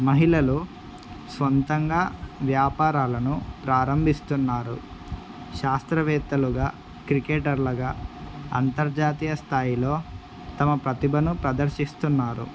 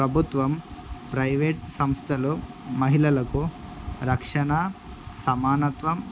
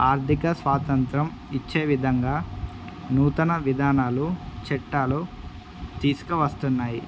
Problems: constant background noise